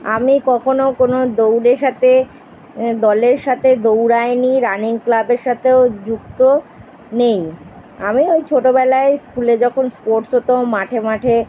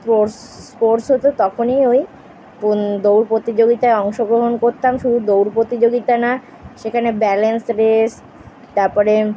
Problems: constant background noise